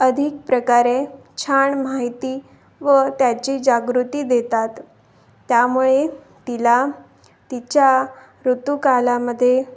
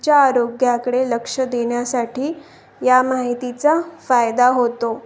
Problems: constant background noise, continuous background conversations